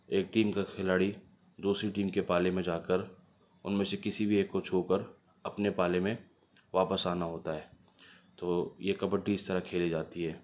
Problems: none marked